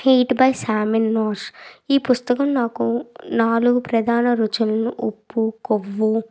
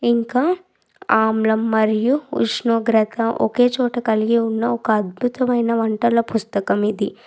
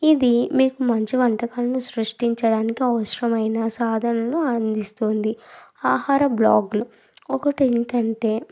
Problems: background sounds at intervals